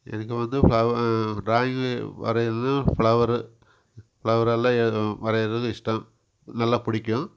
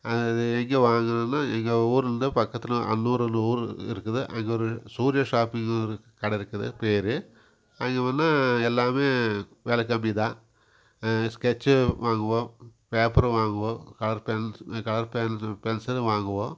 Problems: constant background noise